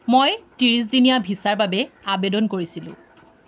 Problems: none marked